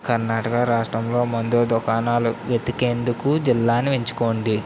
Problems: constant background noise